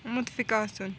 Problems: constant background noise